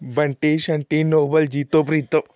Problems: none marked